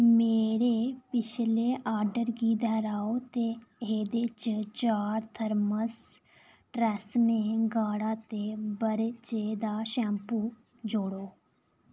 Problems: none marked